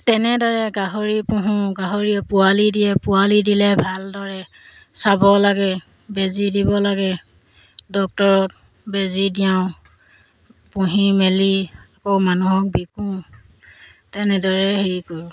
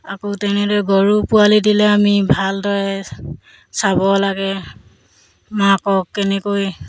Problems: background sounds at intervals